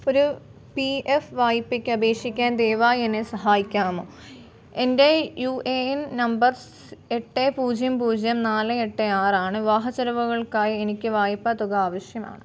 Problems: background sounds at intervals